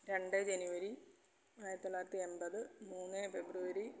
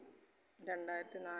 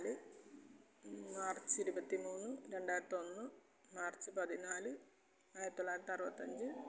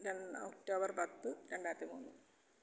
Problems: low volume